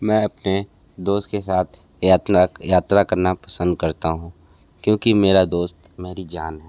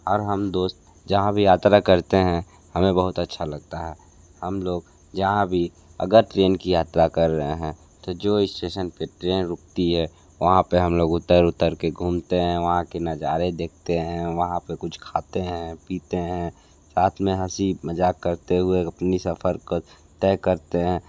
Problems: constant background noise